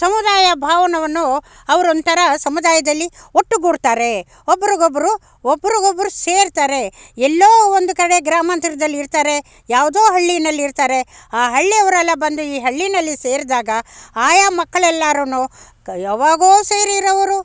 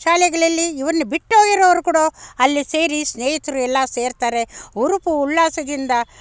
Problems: background sounds at intervals